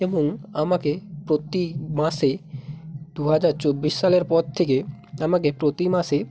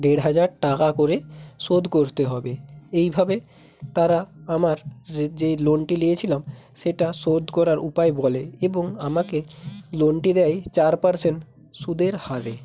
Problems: constant background noise